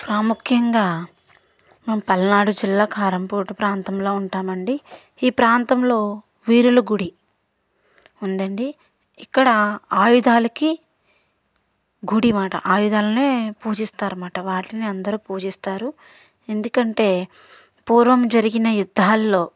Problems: none marked